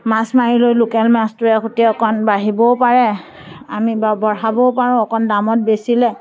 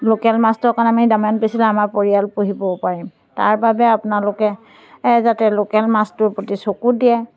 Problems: background sounds at intervals